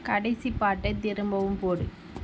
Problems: low volume